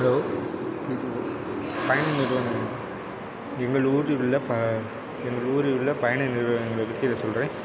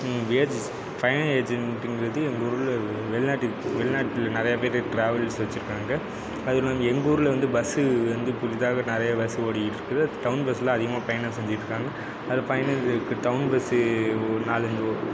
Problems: none marked